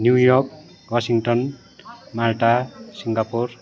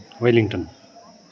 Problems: constant background noise